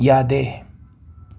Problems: background sounds at intervals